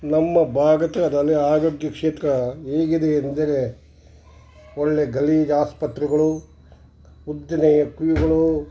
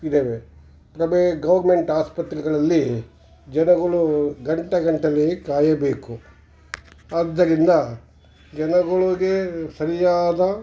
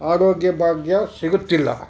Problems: background sounds at intervals